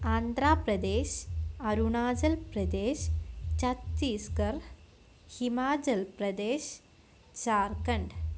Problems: constant background noise